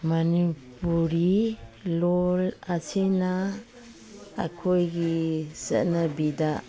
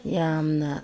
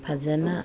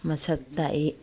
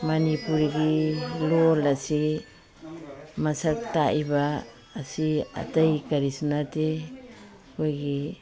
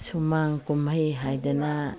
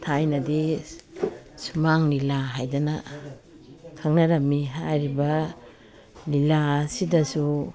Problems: background sounds at intervals